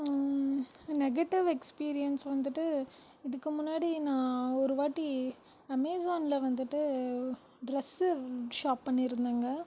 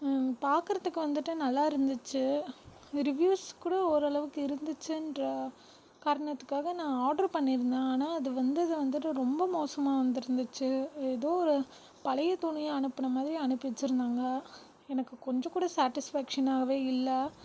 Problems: background sounds at intervals, low volume